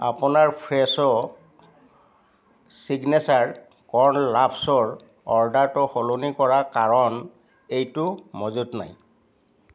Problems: background sounds at intervals, background conversations at intervals